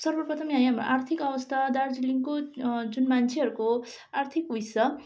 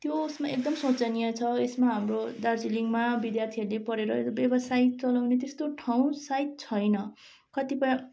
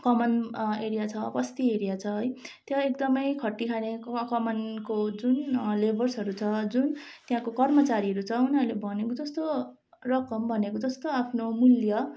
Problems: background sounds at intervals